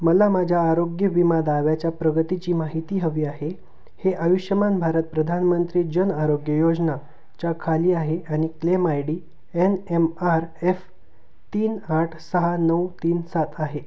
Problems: none marked